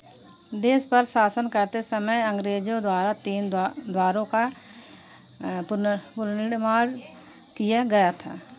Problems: none marked